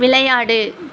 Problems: constant background noise